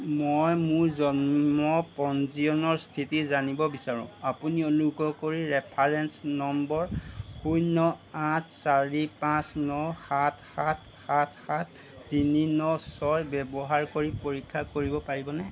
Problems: none marked